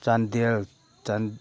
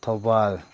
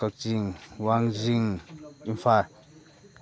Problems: none marked